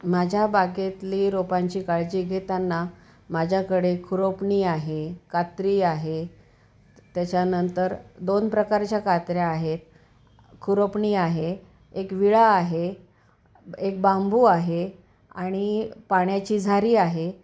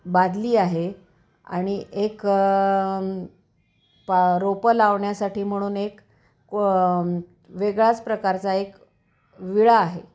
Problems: background sounds at intervals